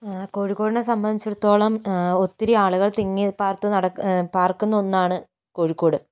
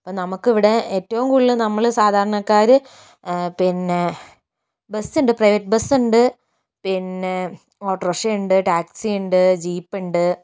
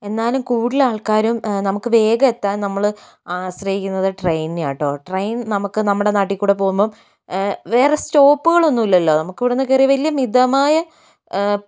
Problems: none marked